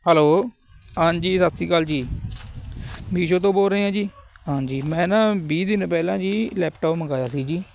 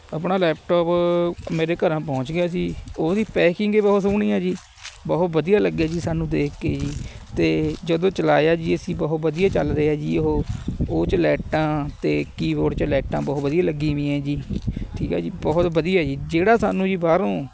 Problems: constant background noise, background conversations at intervals